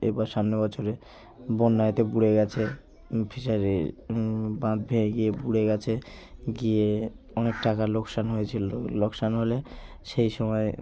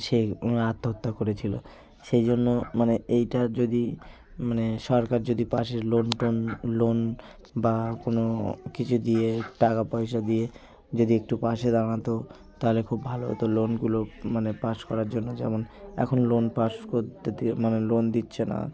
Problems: constant background noise, continuous background conversations